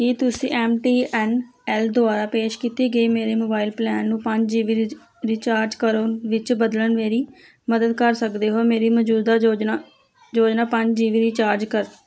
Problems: none marked